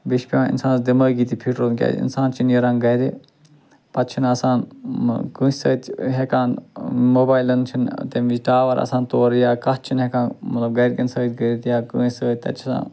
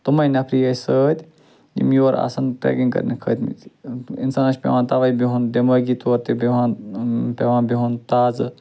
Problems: background sounds at intervals